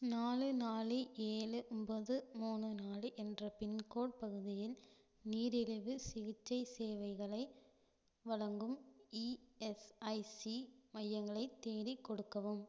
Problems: low volume